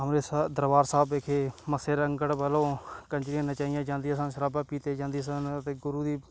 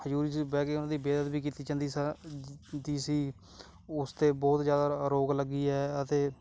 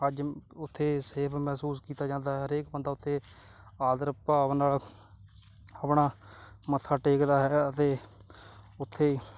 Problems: background sounds at intervals